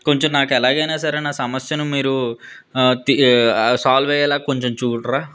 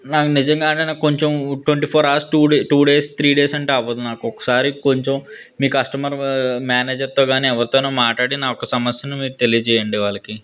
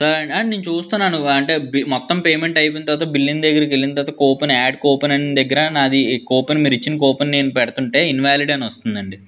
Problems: none marked